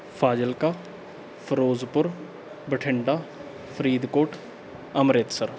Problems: background sounds at intervals